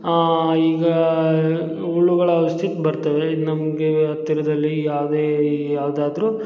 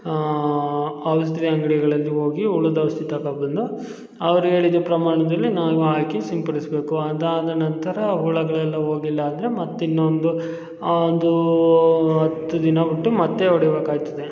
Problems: none marked